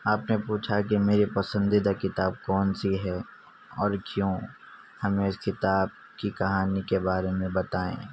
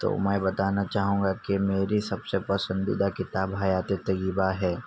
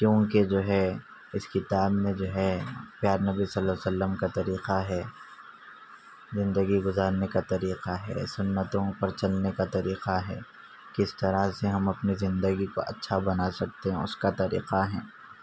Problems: none marked